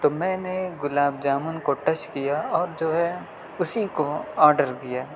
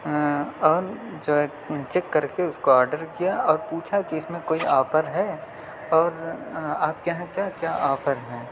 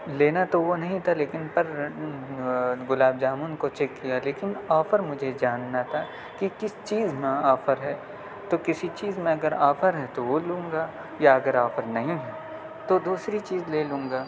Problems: none marked